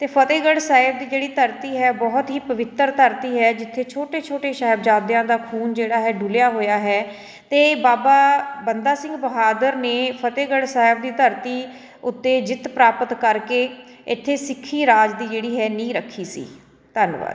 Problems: background sounds at intervals, background conversations at intervals